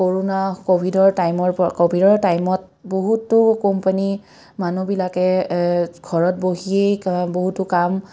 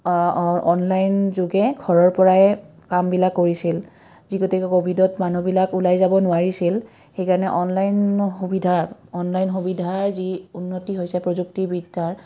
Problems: none marked